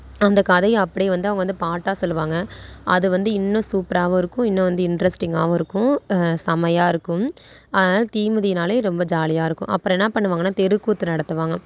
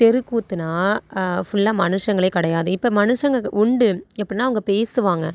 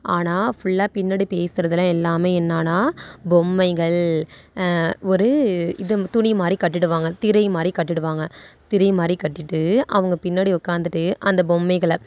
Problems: none marked